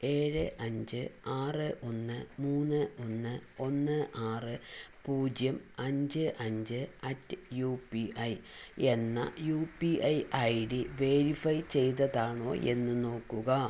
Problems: none marked